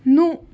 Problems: background sounds at intervals